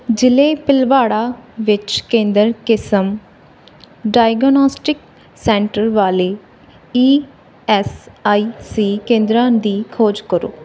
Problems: background sounds at intervals, background conversations at intervals